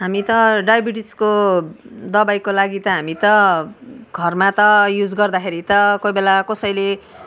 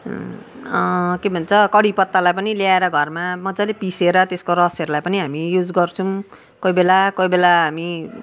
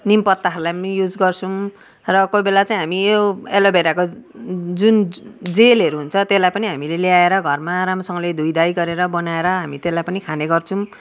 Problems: background sounds at intervals